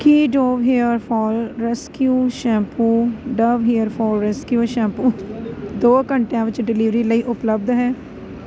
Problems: none marked